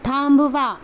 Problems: none marked